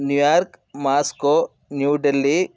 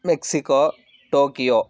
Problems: none marked